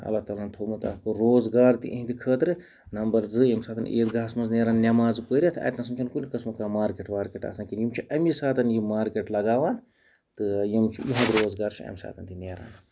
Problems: background sounds at intervals